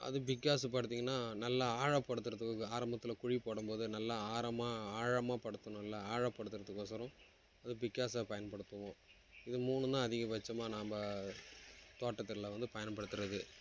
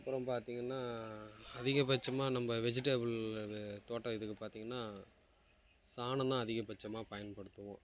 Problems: background sounds at intervals